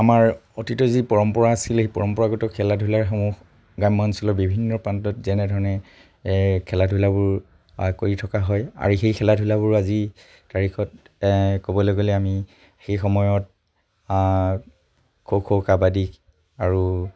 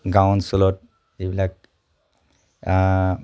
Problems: none marked